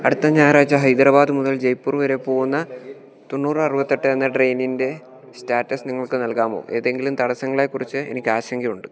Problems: continuous background conversations